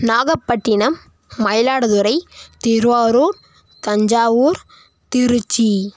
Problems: none marked